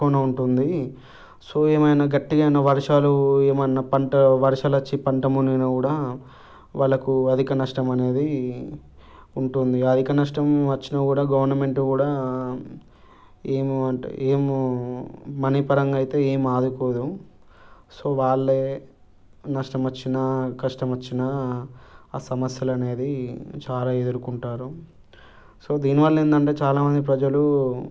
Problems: none marked